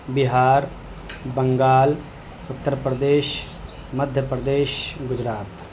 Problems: constant background noise